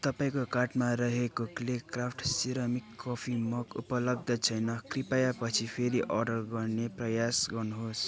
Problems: constant background noise, continuous background conversations